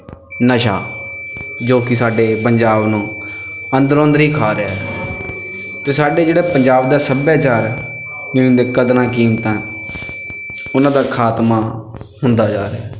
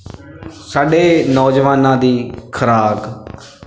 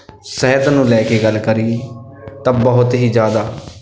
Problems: none marked